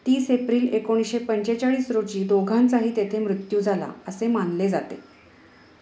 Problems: none marked